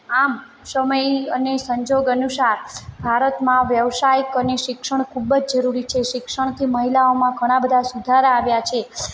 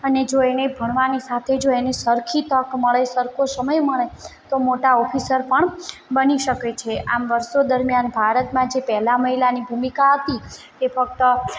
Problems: background sounds at intervals